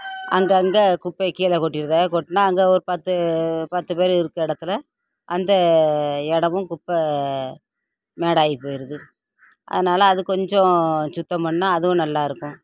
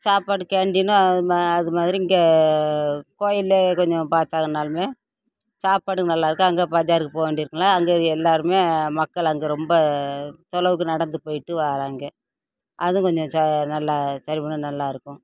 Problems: constant background noise, background conversations at intervals